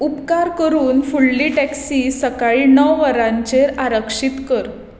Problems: background sounds at intervals